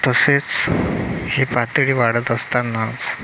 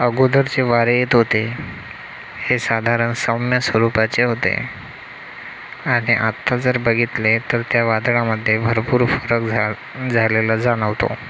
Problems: constant background noise